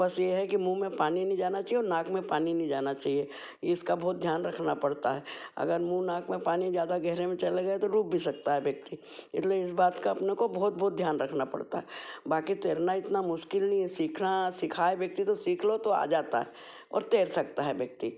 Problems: background sounds at intervals